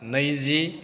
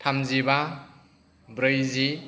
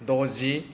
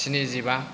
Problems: background sounds at intervals, background conversations at intervals